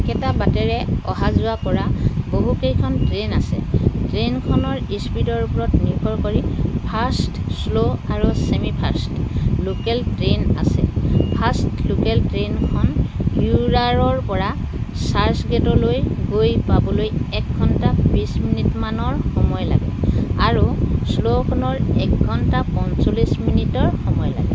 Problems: constant background noise